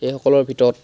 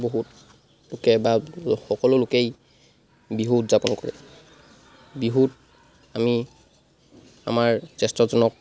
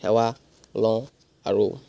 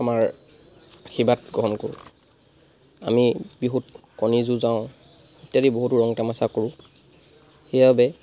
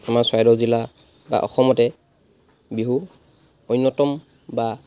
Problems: constant background noise